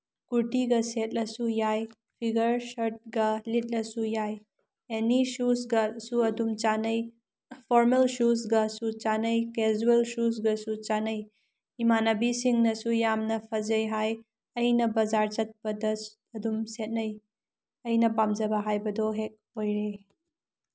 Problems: none marked